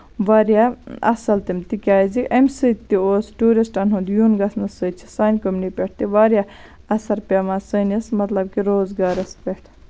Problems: constant background noise